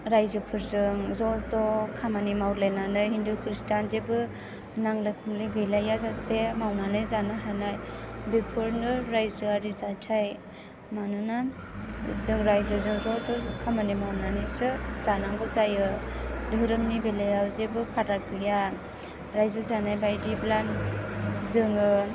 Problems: background sounds at intervals